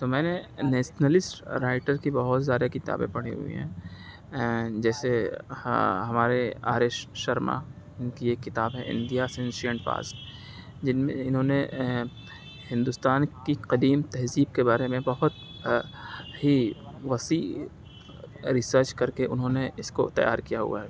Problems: none marked